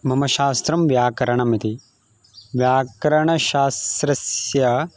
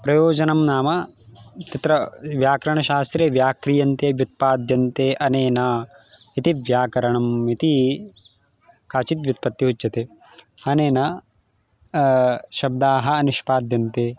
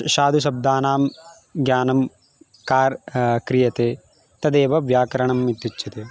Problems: constant background noise, background conversations at intervals